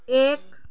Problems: none marked